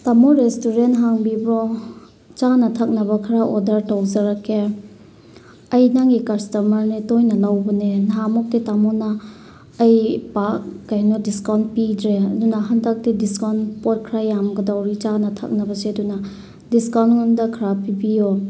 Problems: none marked